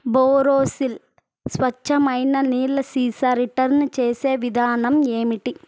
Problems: constant background noise